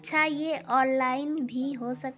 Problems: background sounds at intervals, background conversations at intervals